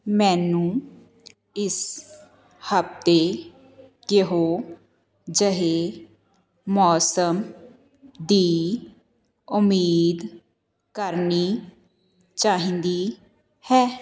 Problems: none marked